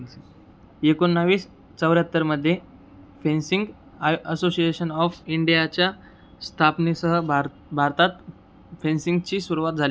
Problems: background sounds at intervals